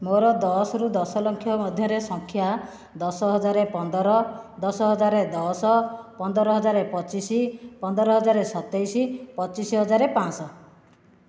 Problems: none marked